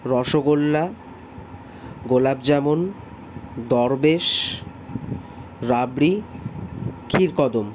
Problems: none marked